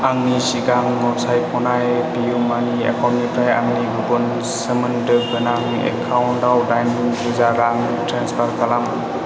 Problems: none marked